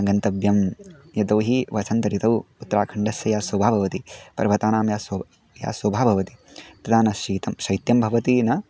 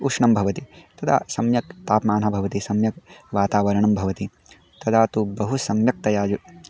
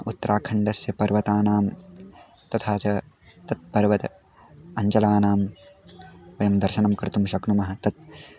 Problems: none marked